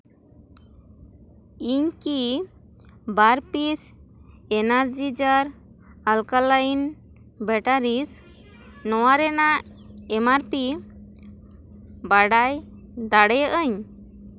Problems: constant background noise